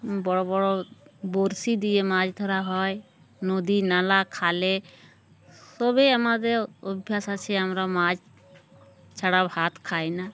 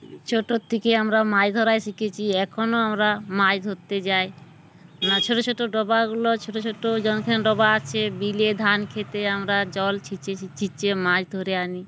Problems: background sounds at intervals